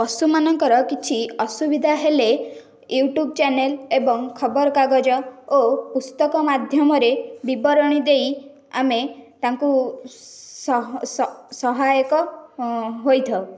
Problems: none marked